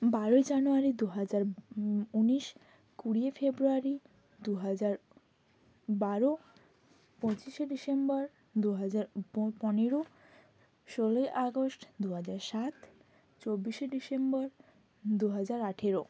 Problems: constant background noise